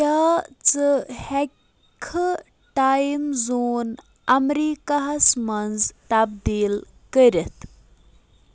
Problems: constant background noise